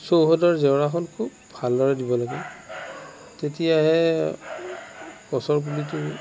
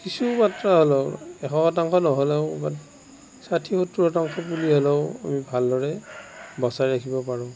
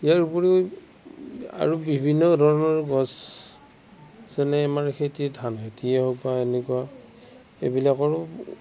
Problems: constant background noise